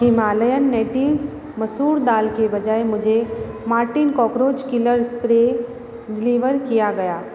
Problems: constant background noise, background conversations at intervals